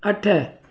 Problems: echo